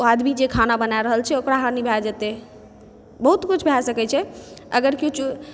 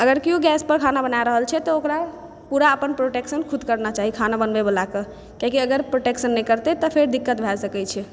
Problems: background sounds at intervals